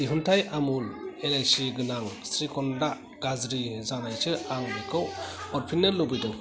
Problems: continuous background conversations